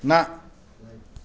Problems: constant background noise